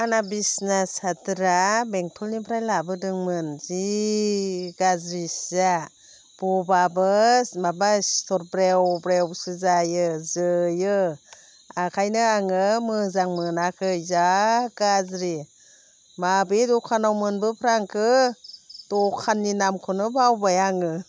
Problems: constant background noise